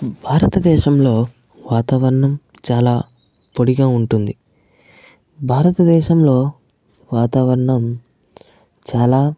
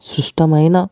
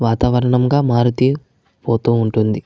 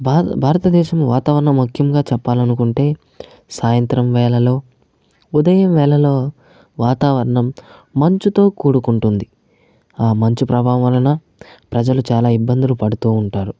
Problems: none marked